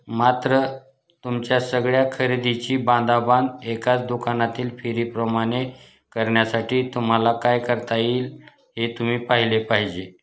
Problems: background sounds at intervals